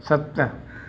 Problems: constant background noise